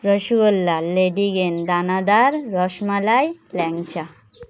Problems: constant background noise